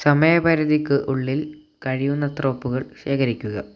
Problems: low volume